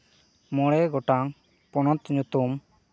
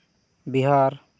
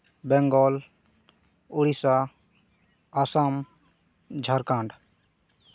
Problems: none marked